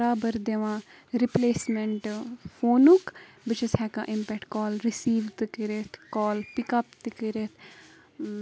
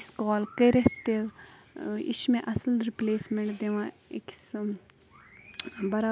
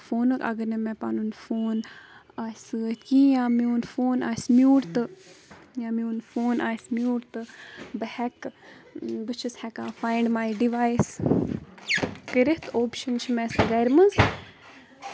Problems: constant background noise, background conversations at intervals